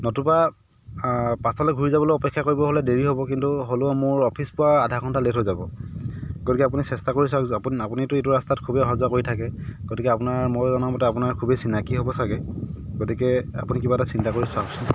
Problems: background sounds at intervals